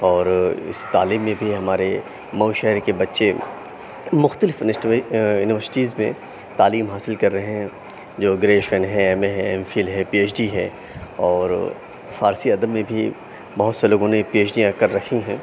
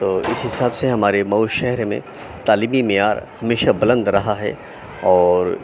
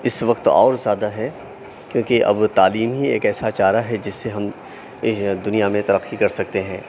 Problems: none marked